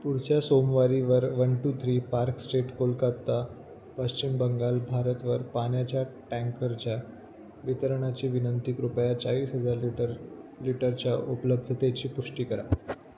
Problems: none marked